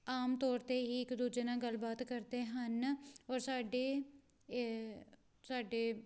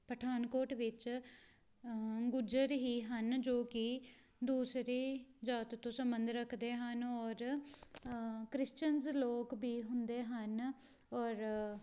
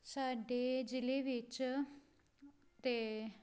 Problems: background sounds at intervals